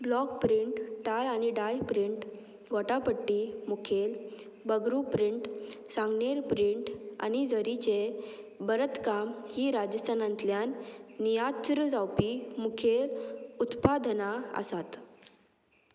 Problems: constant background noise